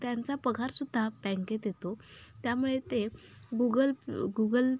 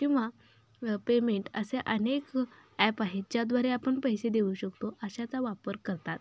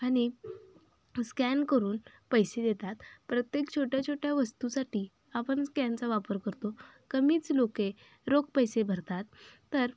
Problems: background sounds at intervals